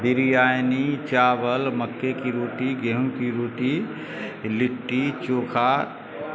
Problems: constant background noise